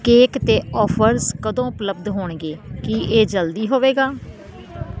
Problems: constant background noise